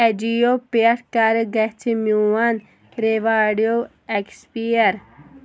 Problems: background sounds at intervals